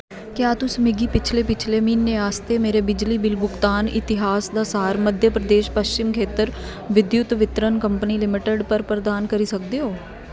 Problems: none marked